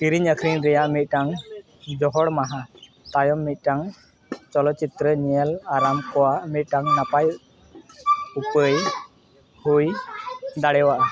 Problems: constant background noise, continuous background conversations